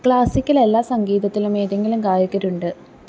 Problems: low volume